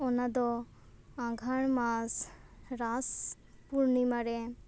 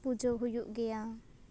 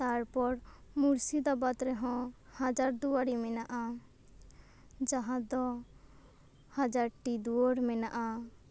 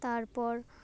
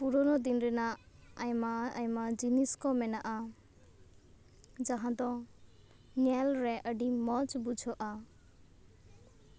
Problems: none marked